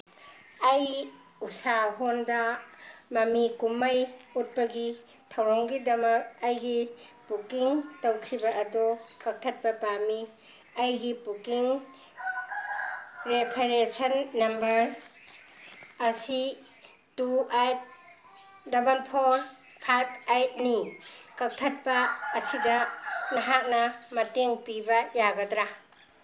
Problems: background sounds at intervals